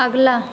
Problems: constant background noise